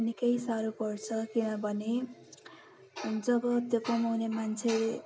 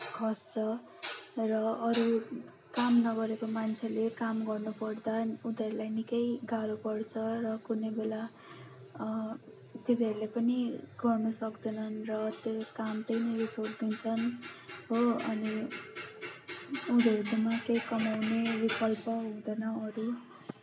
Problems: constant background noise, continuous background conversations